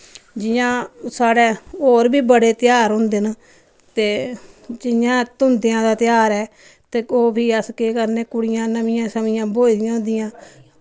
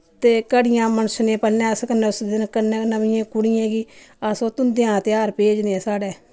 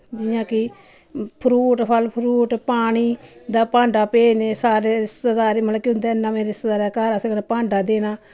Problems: none marked